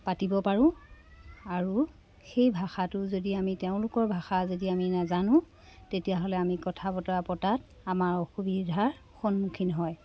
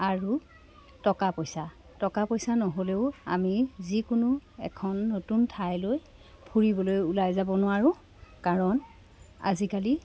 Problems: none marked